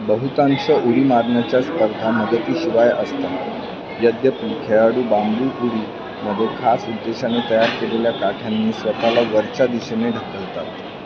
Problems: constant background noise, continuous background conversations